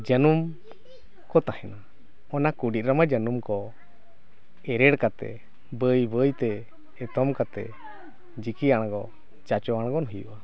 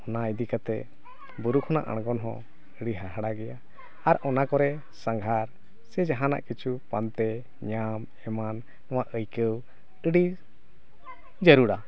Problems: background conversations at intervals